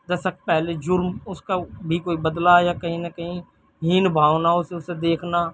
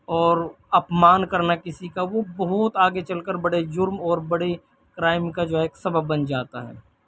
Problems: background sounds at intervals